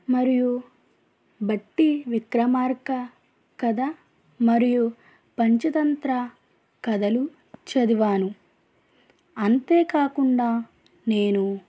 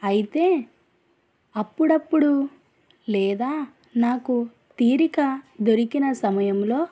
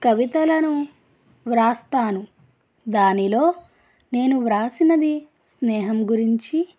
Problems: none marked